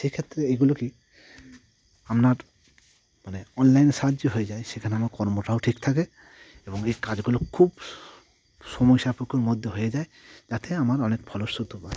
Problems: constant background noise